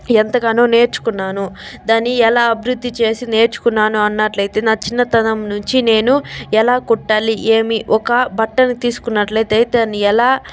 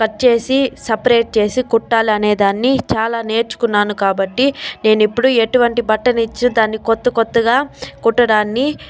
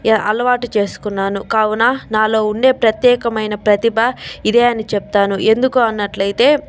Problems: none marked